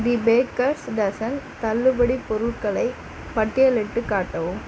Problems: none marked